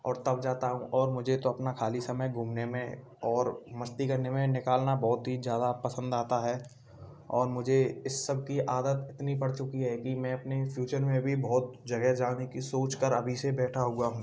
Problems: background sounds at intervals